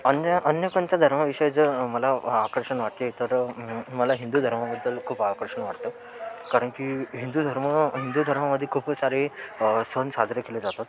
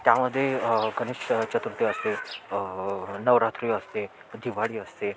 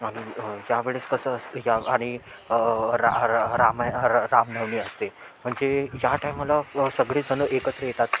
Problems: constant background noise, continuous background conversations